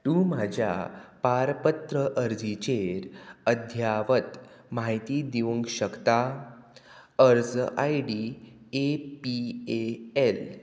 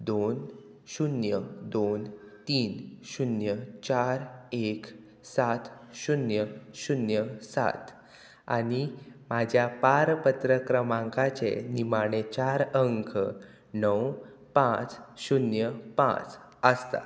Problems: none marked